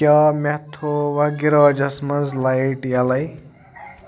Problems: background sounds at intervals, background conversations at intervals